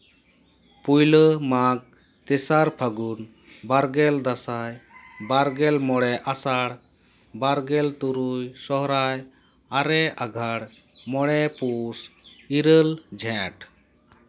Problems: background sounds at intervals